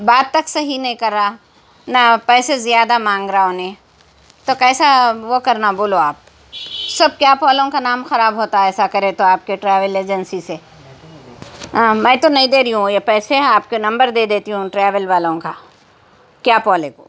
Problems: constant background noise, background conversations at intervals